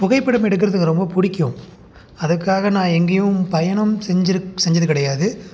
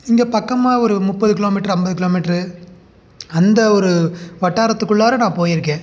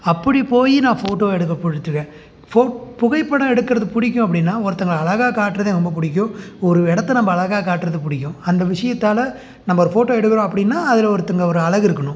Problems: none marked